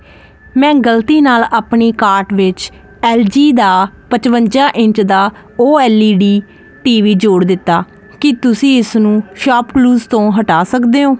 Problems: constant background noise